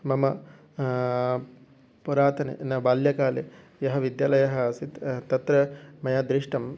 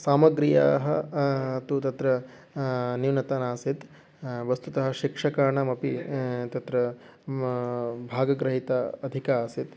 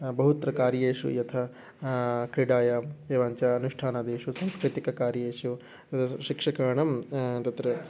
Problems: background sounds at intervals